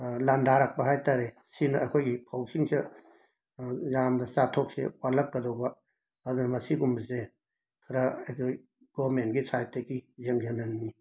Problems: background sounds at intervals